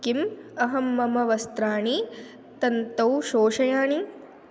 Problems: constant background noise